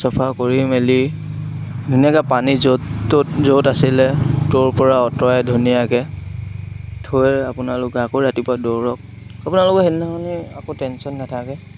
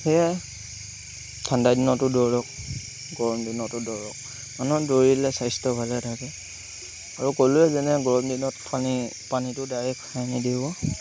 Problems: constant background noise